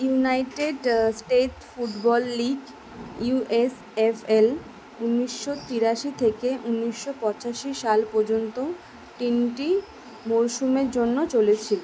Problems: constant background noise